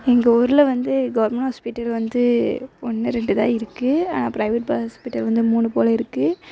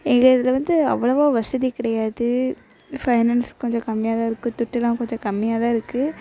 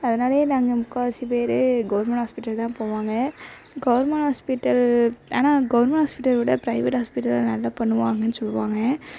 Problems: constant background noise